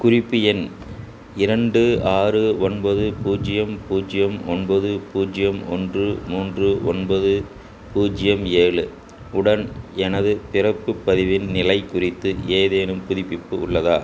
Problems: constant background noise